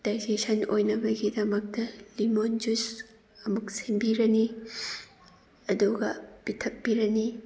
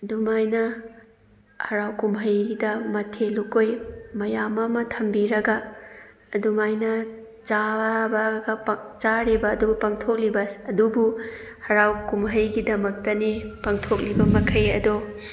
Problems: background sounds at intervals, background conversations at intervals